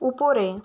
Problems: none marked